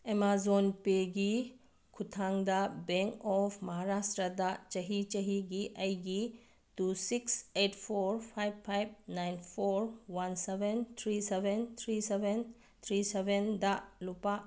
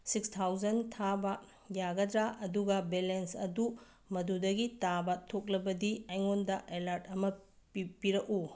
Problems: none marked